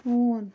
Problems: background sounds at intervals